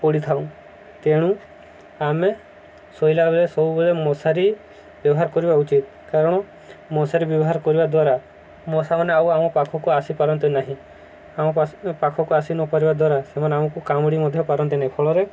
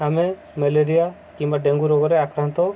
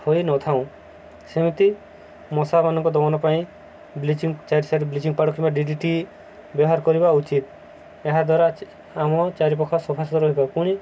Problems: none marked